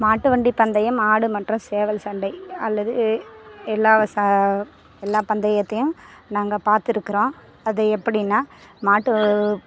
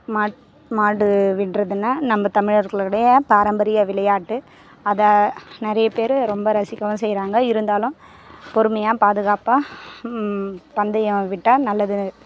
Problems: constant background noise